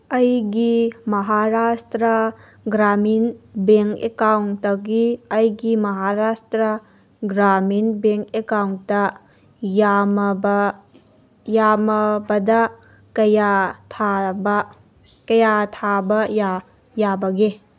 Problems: background sounds at intervals